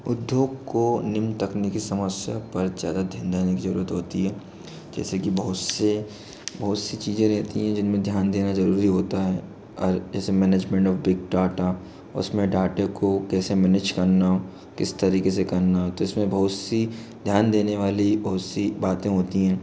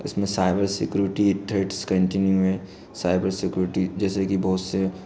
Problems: background sounds at intervals